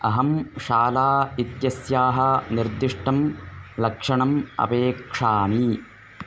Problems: background sounds at intervals